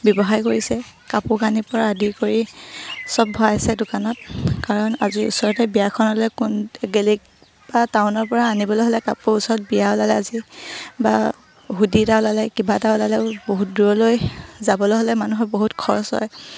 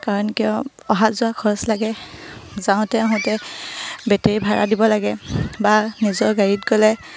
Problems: low volume